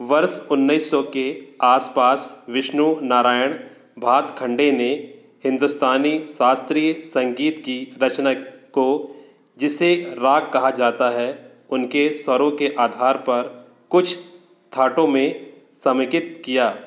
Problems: constant background noise